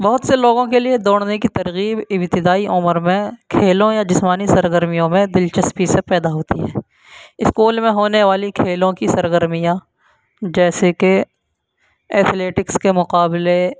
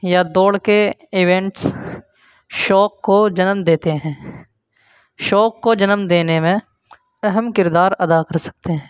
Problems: constant background noise